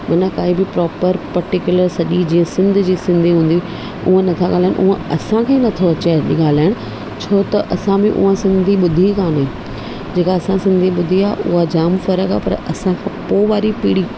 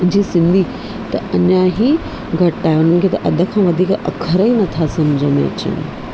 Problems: constant background noise, low volume